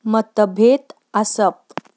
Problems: background sounds at intervals